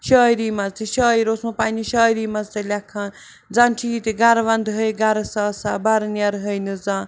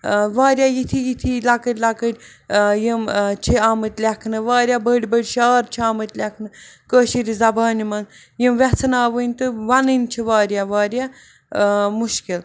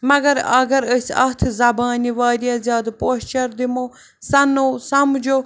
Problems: background sounds at intervals